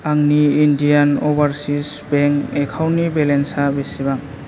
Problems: none marked